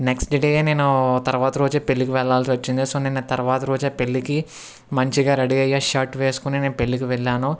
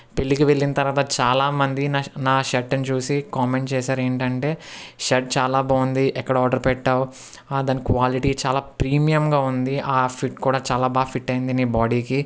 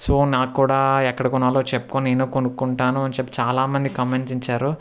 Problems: none marked